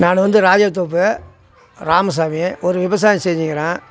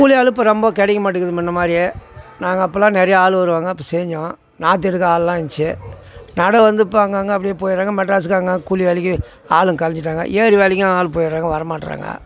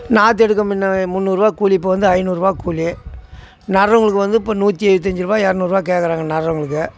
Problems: constant background noise